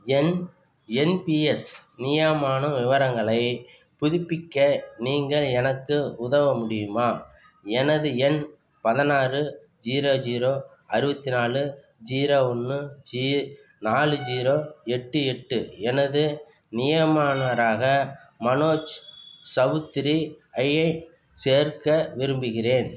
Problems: background sounds at intervals